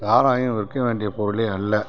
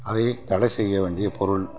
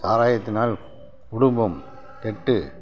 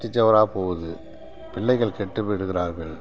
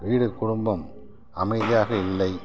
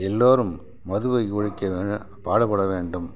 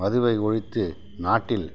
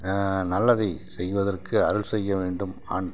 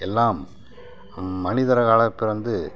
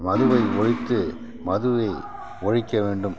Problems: background sounds at intervals